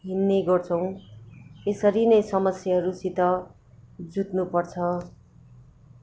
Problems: constant background noise